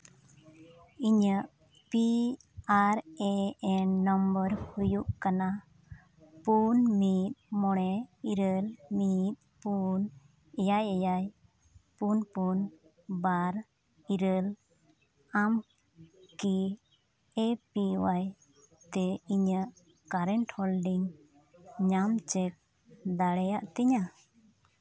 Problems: background sounds at intervals